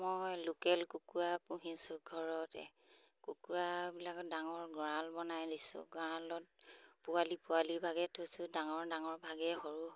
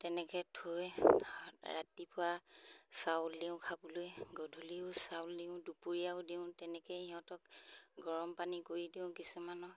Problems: none marked